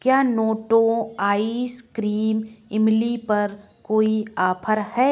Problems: background sounds at intervals